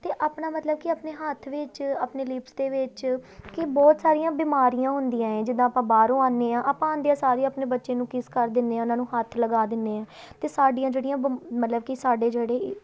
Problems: none marked